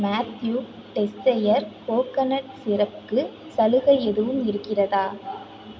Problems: none marked